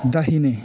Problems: constant background noise